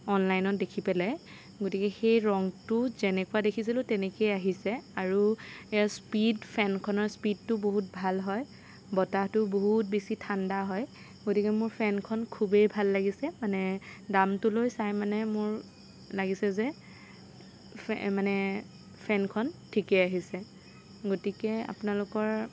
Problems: none marked